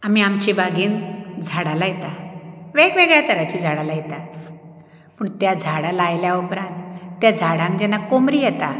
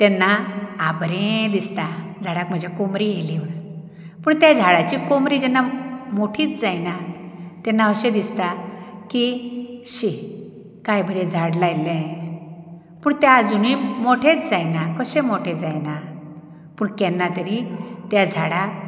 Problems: background sounds at intervals